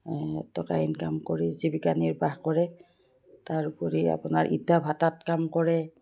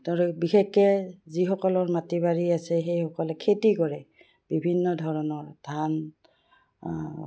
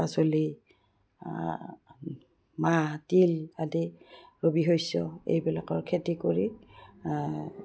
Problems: none marked